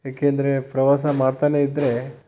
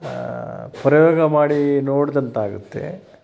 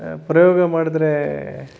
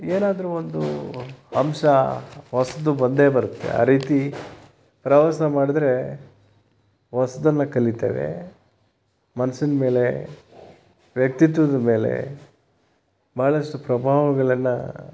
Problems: constant background noise